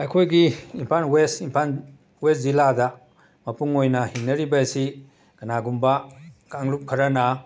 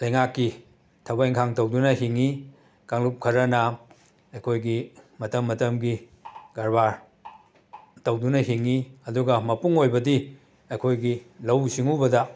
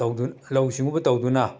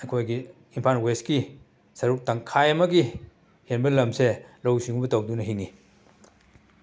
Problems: background sounds at intervals